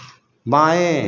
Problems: none marked